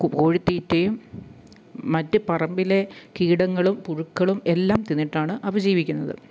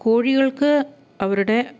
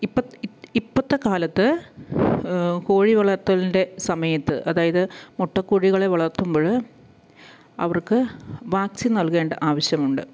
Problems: low volume